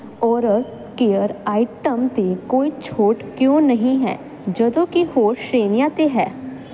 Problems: constant background noise